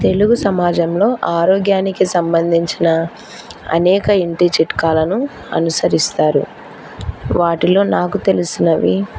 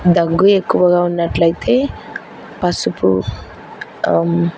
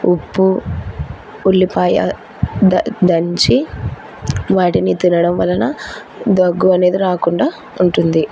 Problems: none marked